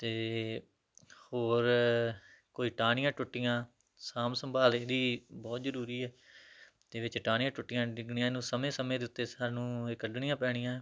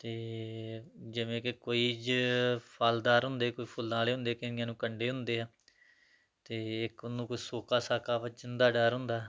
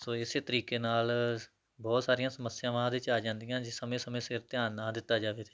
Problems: background sounds at intervals